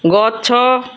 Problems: none marked